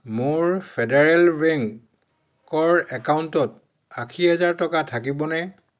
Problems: none marked